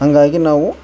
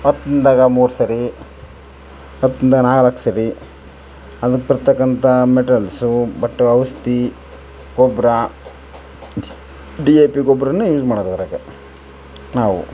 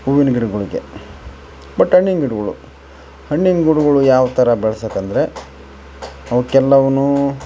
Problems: background sounds at intervals